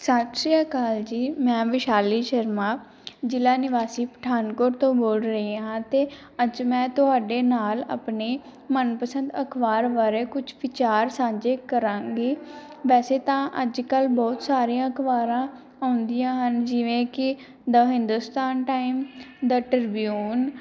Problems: background sounds at intervals